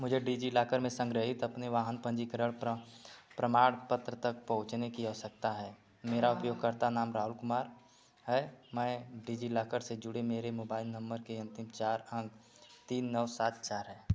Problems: none marked